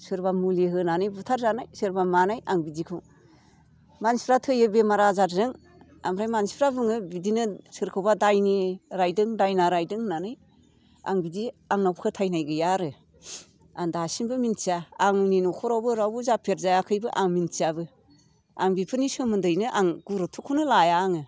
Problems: none marked